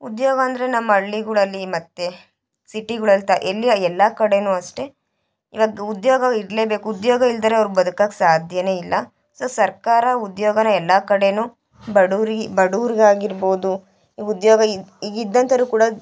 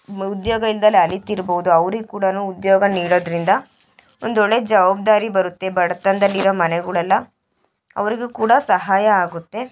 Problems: background conversations at intervals